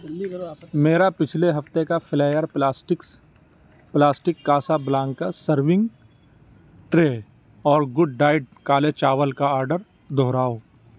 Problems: none marked